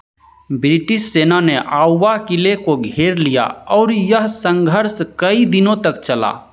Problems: none marked